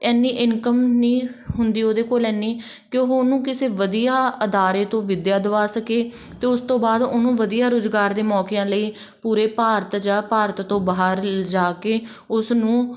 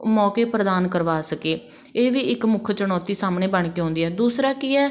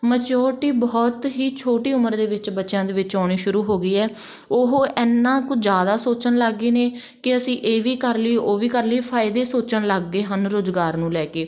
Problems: background sounds at intervals, background conversations at intervals